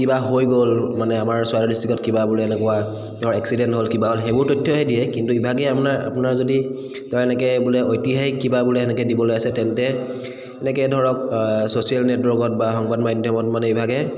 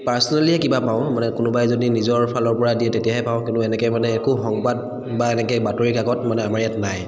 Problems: echo